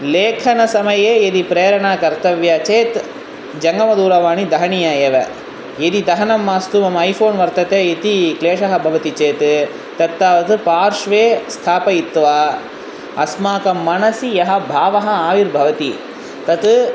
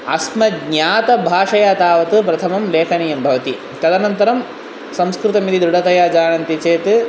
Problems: constant background noise